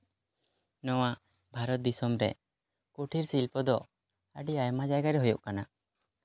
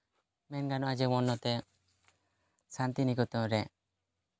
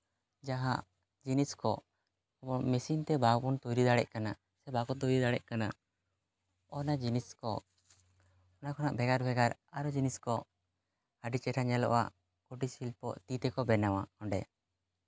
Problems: none marked